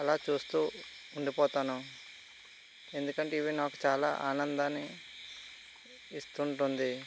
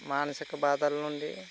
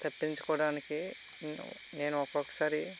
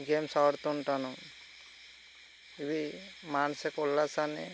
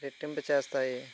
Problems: constant background noise